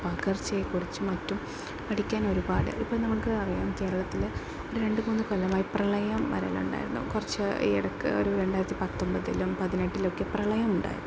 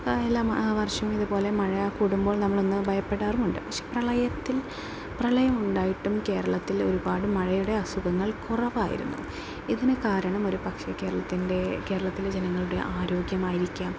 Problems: background sounds at intervals